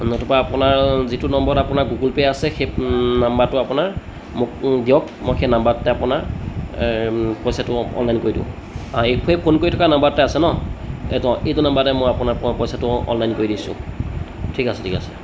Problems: constant background noise, background conversations at intervals